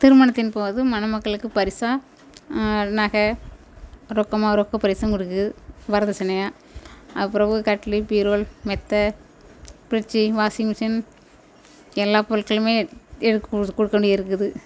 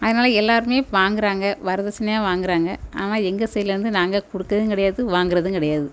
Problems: background sounds at intervals